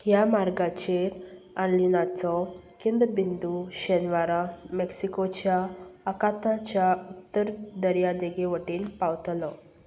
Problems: none marked